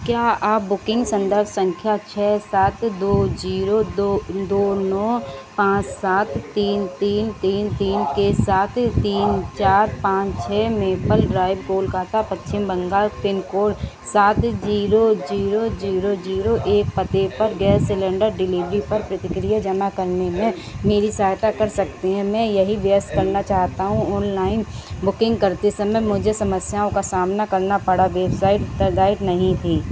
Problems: constant background noise